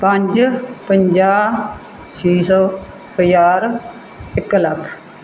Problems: background sounds at intervals